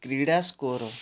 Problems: background sounds at intervals